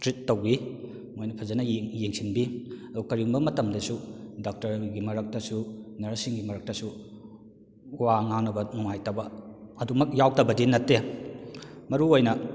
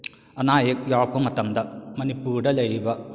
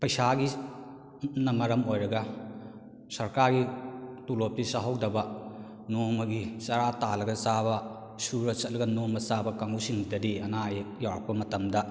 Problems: echo